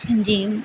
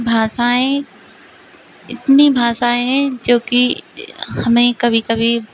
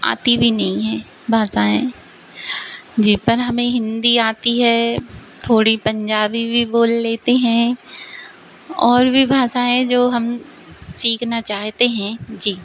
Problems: none marked